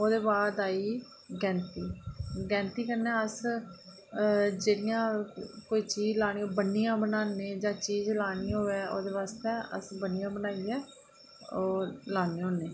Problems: none marked